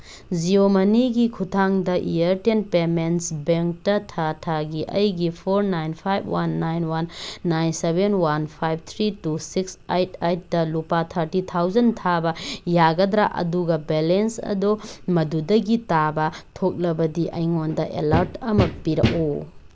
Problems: background sounds at intervals